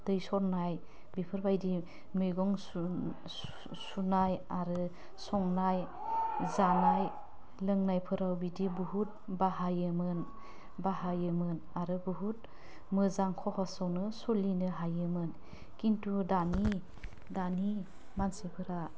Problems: none marked